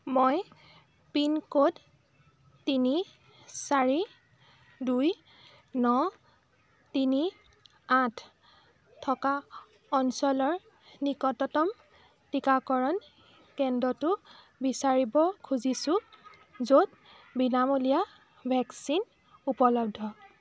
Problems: background conversations at intervals